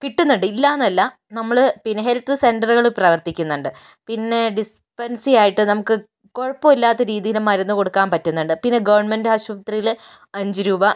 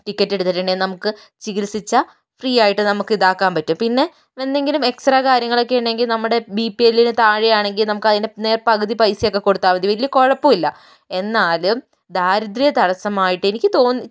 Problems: none marked